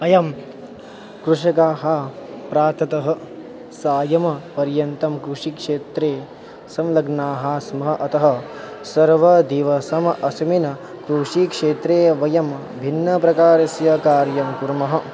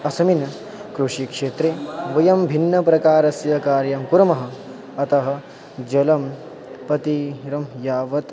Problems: none marked